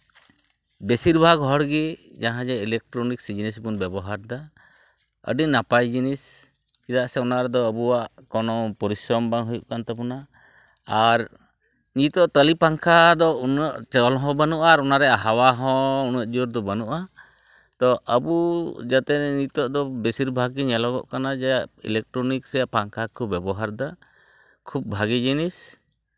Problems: none marked